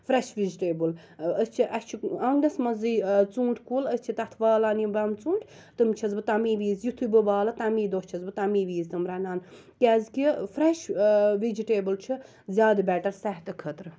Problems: background sounds at intervals